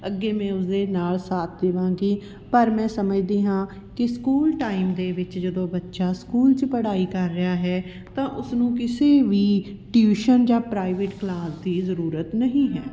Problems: background sounds at intervals